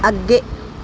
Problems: none marked